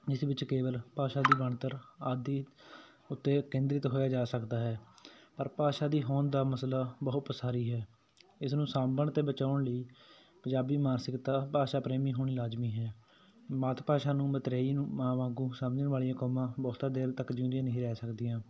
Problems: none marked